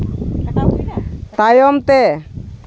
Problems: background conversations at intervals